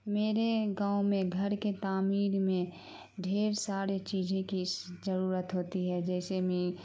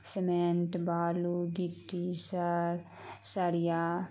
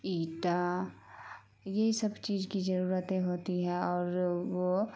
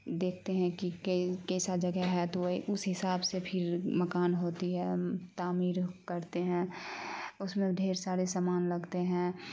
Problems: constant background noise